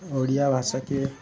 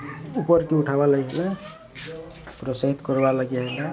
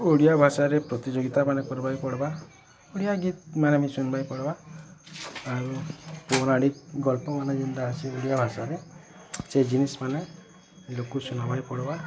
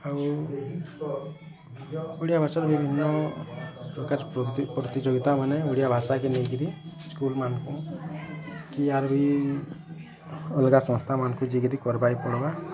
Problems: constant background noise, continuous background conversations